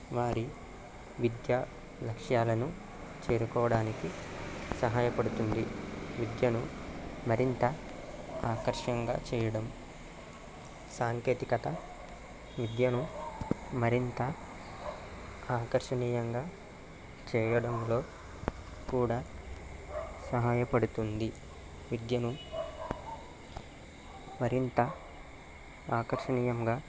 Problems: none marked